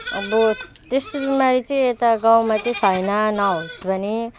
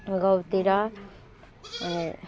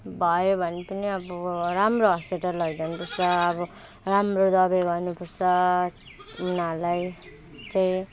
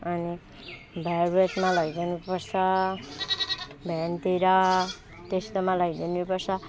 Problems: background sounds at intervals